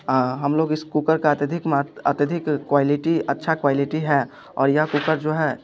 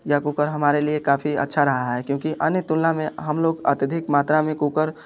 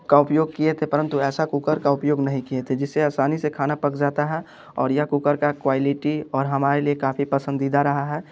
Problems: none marked